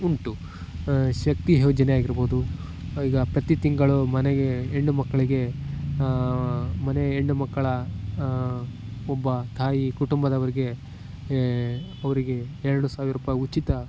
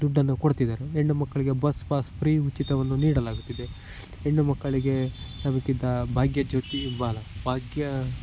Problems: constant background noise